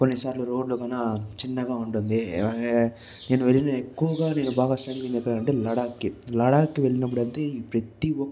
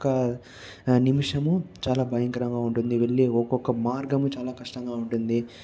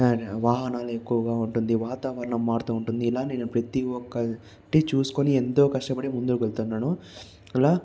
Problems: constant background noise, background conversations at intervals